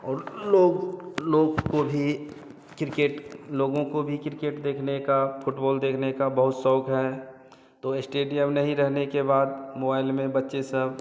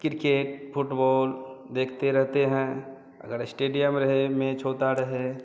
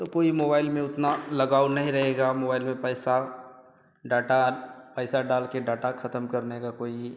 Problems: constant background noise, background conversations at intervals